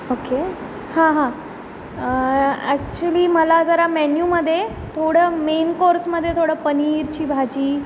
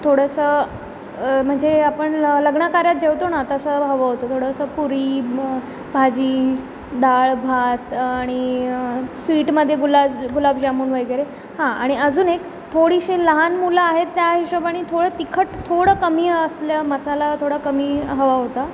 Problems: none marked